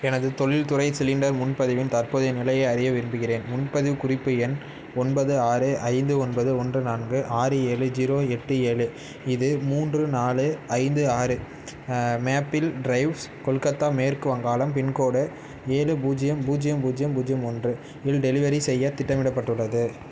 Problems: constant background noise